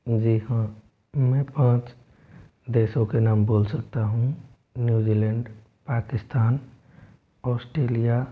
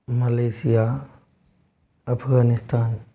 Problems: low volume